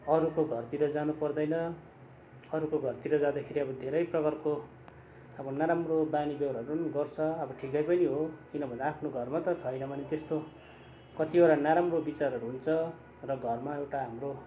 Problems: constant background noise